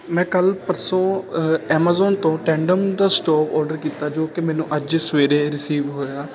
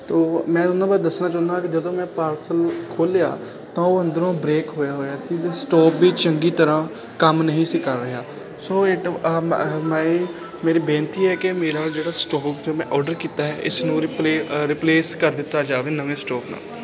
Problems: constant background noise